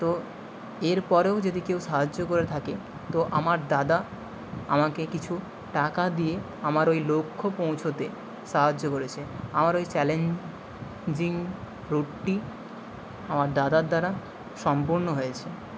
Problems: background sounds at intervals